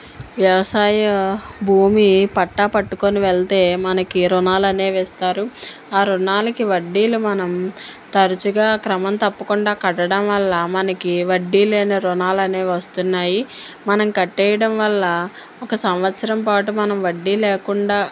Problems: none marked